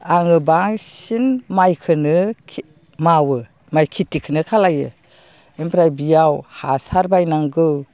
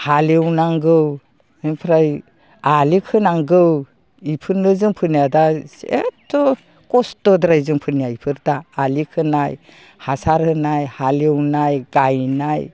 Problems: low volume